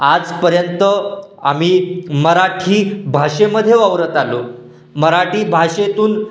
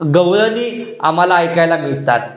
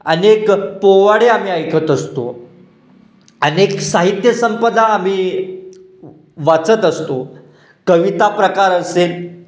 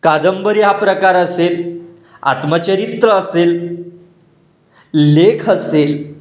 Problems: background sounds at intervals, echo